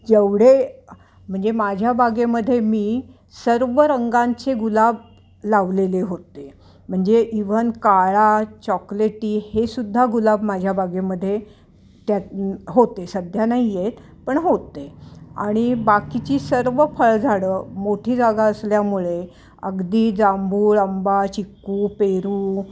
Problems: none marked